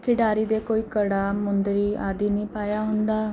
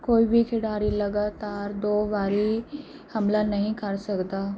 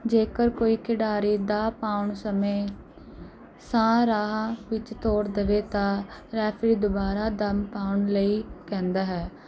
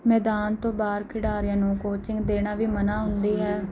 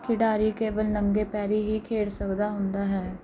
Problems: background sounds at intervals